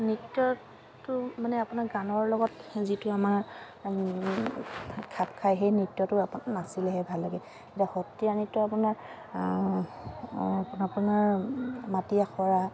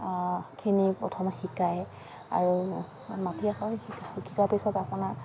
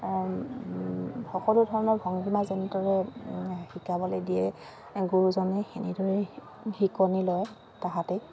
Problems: constant background noise